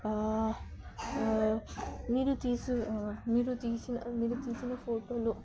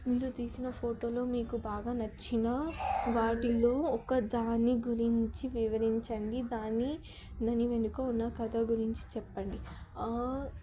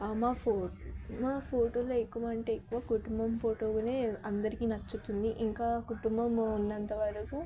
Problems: background conversations at intervals, low volume